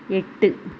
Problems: none marked